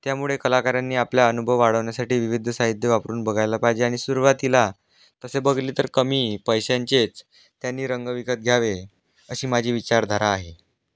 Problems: background sounds at intervals